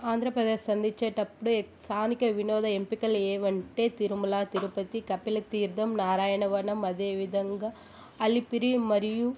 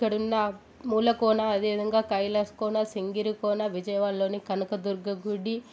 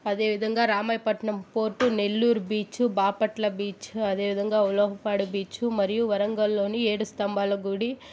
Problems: constant background noise